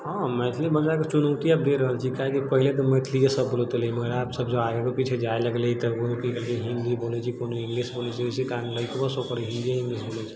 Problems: low volume